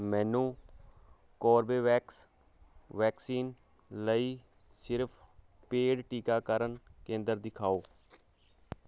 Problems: constant background noise